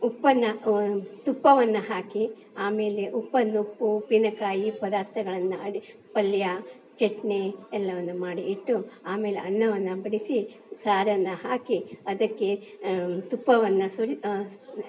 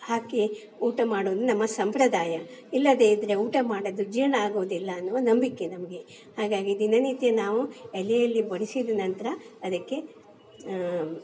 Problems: background sounds at intervals